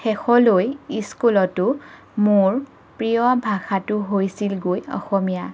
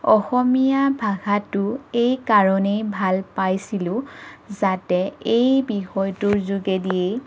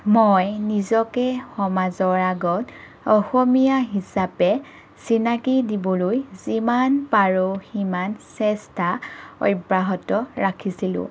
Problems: none marked